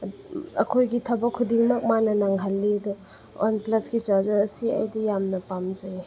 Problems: background sounds at intervals